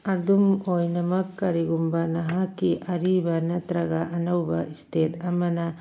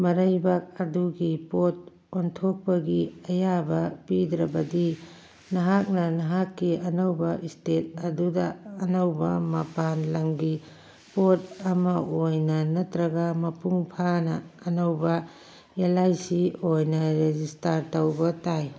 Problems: background sounds at intervals